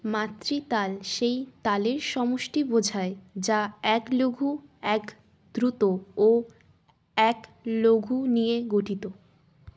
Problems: constant background noise